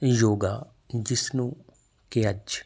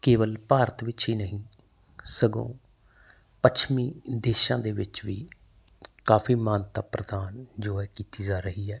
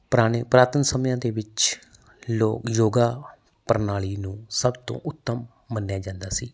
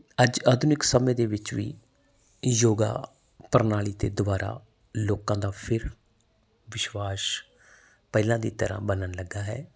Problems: background sounds at intervals